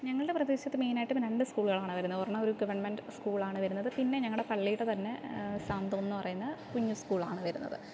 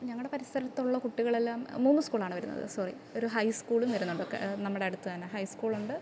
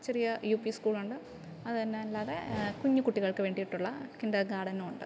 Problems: background sounds at intervals, background conversations at intervals